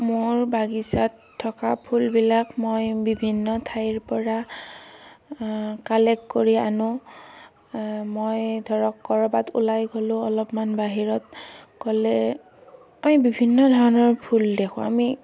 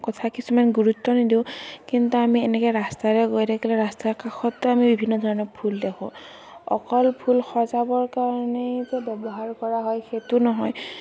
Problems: constant background noise